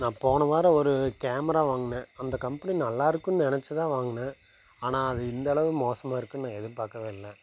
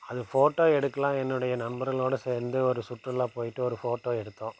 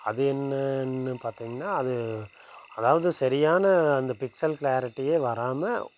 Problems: none marked